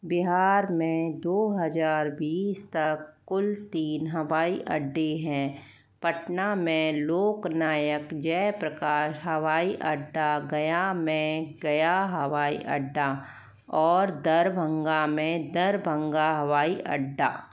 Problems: none marked